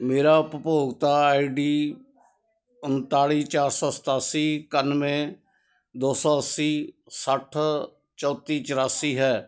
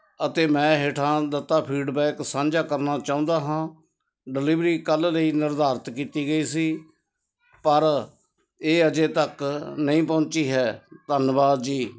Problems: none marked